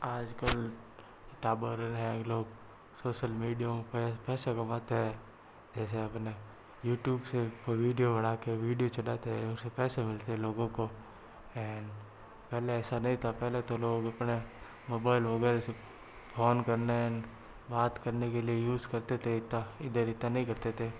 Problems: low volume